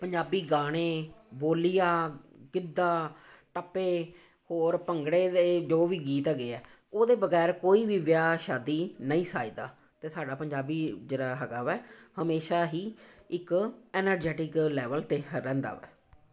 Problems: constant background noise